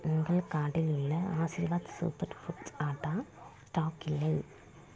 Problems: low volume